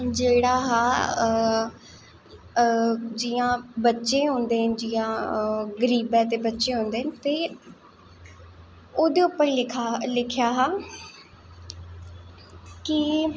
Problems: echo